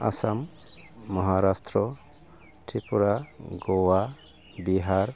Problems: none marked